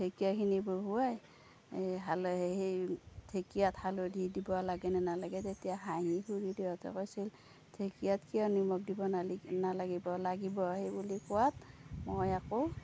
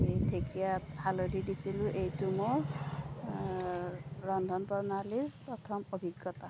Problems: low volume